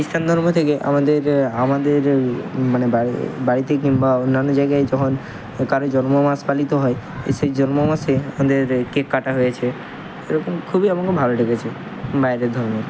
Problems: constant background noise, continuous background conversations